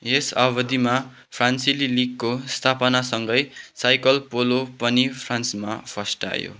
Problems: none marked